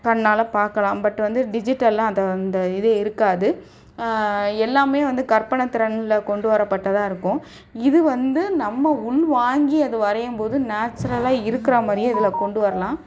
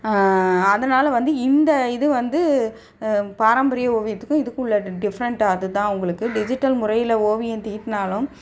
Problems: none marked